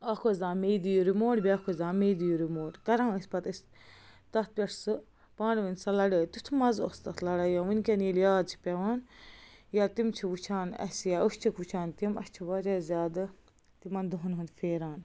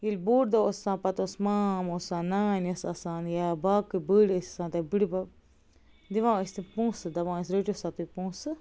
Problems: none marked